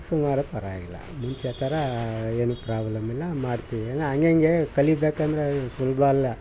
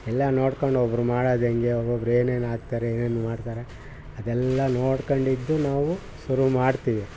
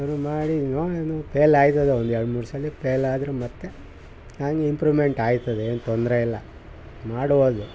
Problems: background sounds at intervals